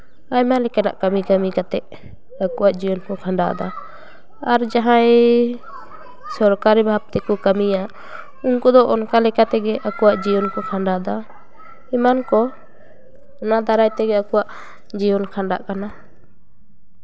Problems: continuous background conversations